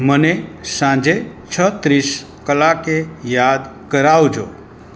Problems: constant background noise